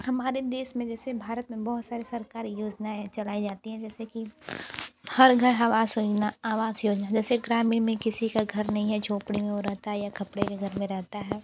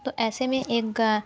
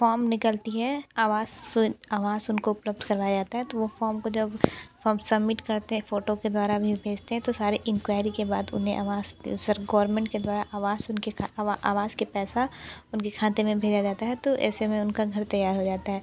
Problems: background sounds at intervals